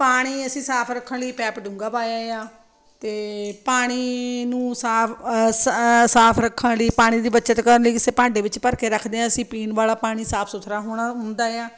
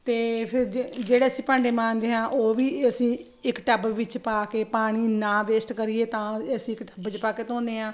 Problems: none marked